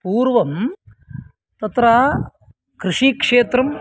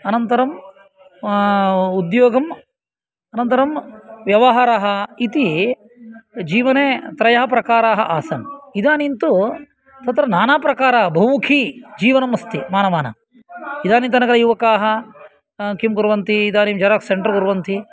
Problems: continuous background conversations